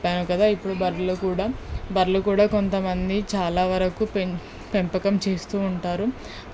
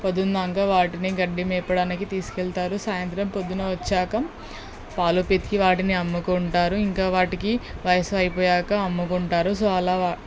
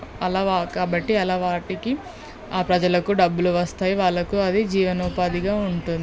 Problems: background sounds at intervals